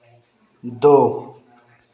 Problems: constant background noise, background conversations at intervals